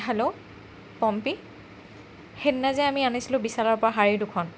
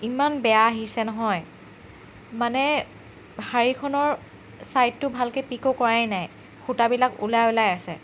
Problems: constant background noise